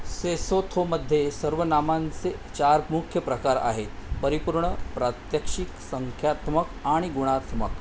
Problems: constant background noise